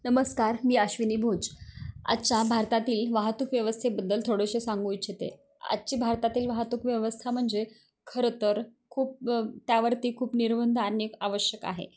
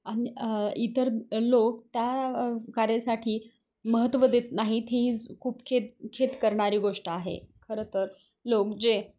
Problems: none marked